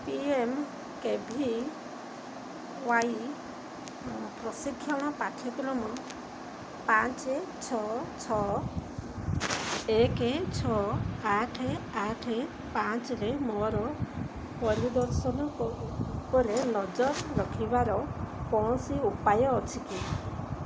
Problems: constant background noise